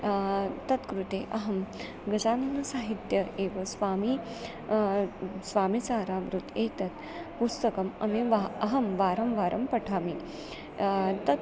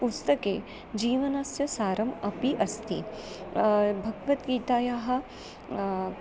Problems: constant background noise